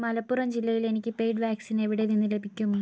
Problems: none marked